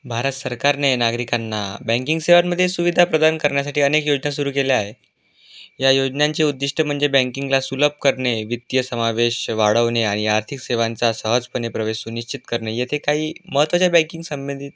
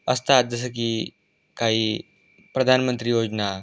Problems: constant background noise